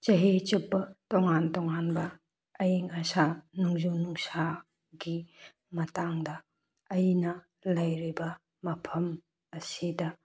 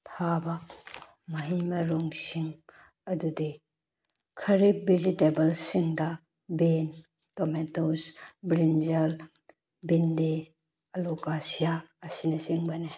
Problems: none marked